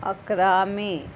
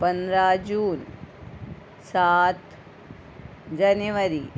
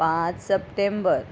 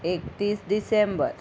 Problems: background sounds at intervals